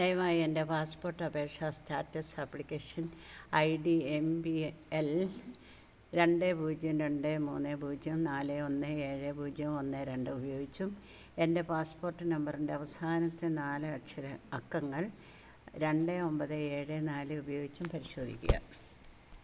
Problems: constant background noise